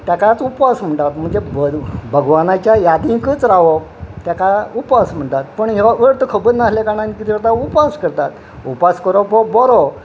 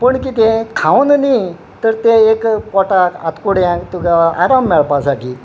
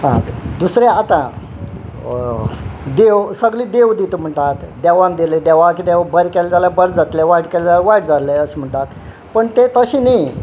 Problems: none marked